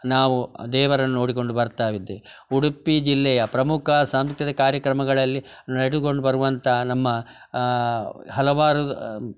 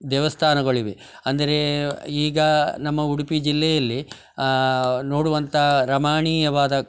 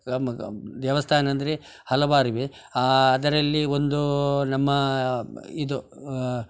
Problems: background sounds at intervals